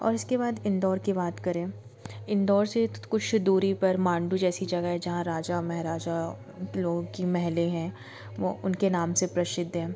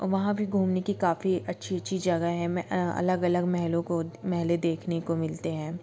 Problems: background sounds at intervals